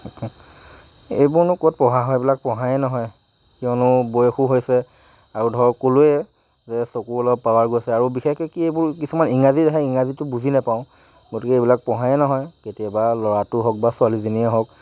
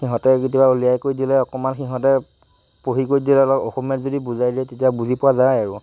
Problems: constant background noise